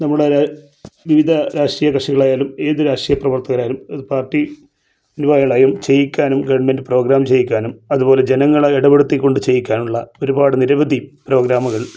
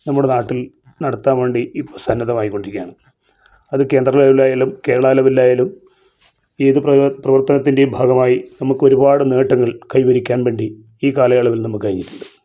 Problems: none marked